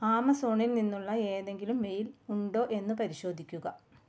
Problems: none marked